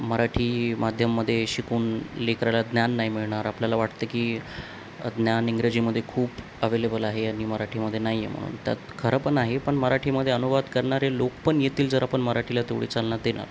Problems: none marked